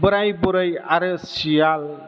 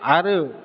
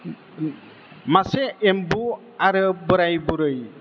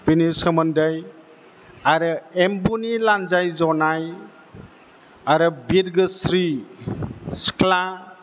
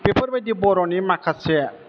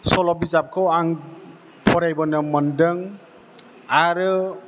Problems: constant background noise